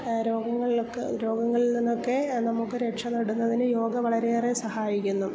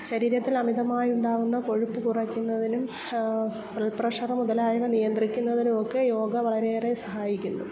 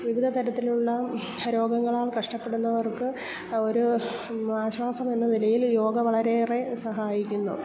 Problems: constant background noise, low volume